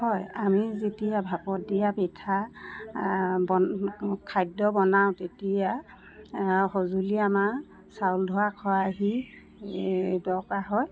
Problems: constant background noise